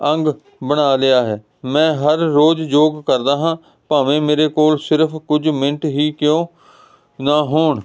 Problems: constant background noise